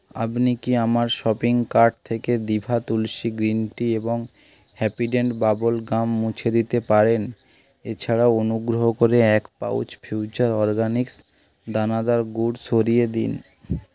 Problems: constant background noise